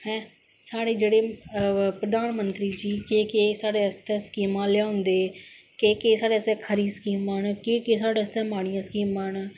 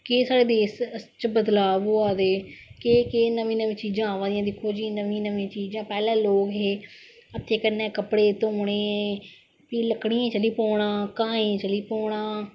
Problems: none marked